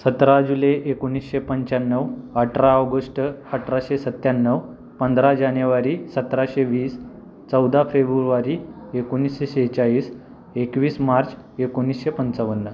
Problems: none marked